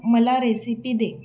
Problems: none marked